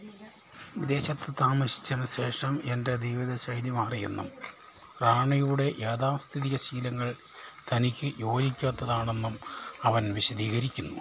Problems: constant background noise, low volume